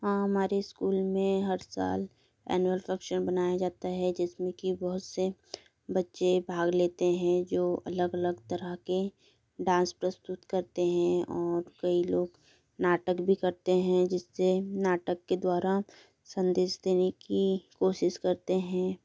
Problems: background sounds at intervals